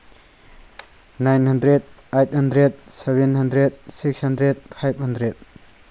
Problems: constant background noise